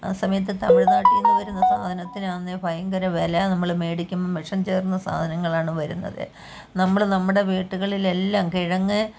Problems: none marked